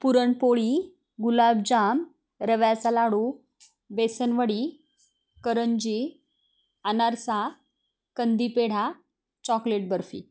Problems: none marked